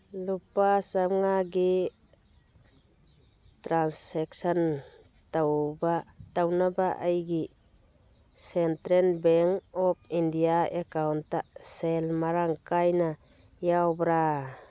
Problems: none marked